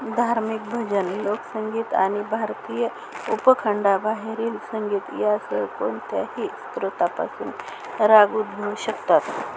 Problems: constant background noise